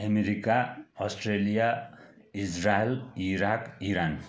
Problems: continuous background conversations